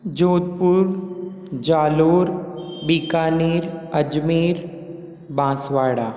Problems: constant background noise, echo